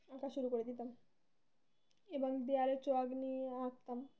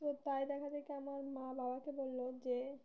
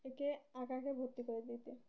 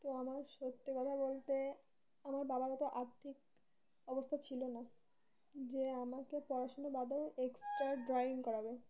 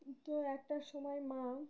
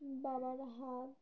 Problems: none marked